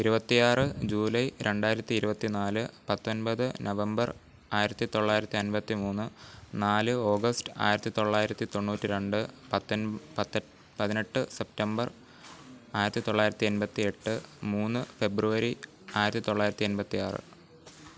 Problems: none marked